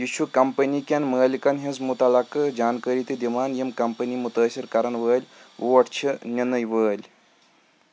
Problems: background sounds at intervals